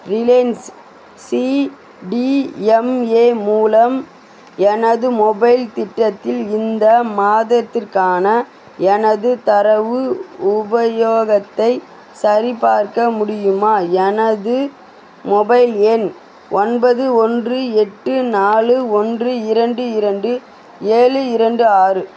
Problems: constant background noise